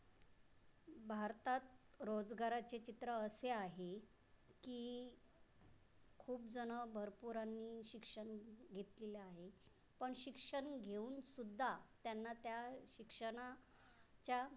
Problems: background sounds at intervals